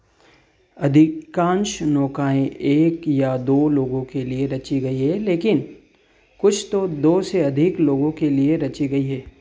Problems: background sounds at intervals